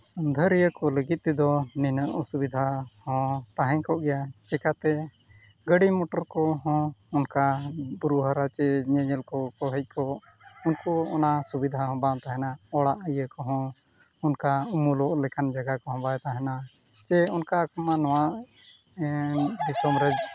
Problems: none marked